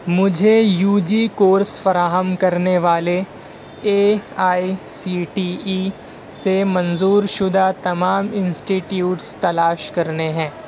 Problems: background sounds at intervals